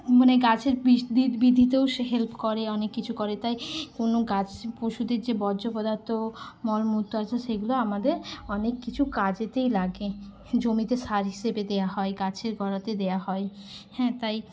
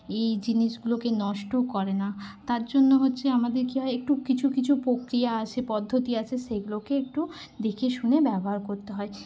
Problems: none marked